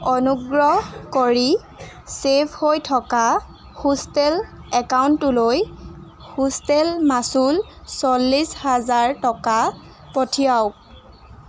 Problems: constant background noise